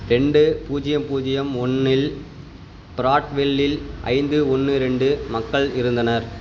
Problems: constant background noise